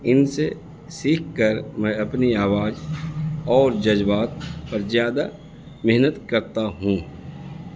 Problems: constant background noise